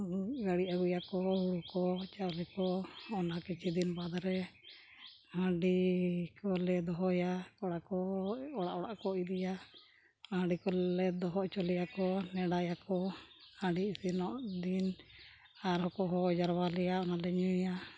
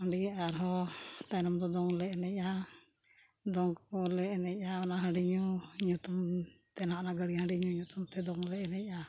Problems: background sounds at intervals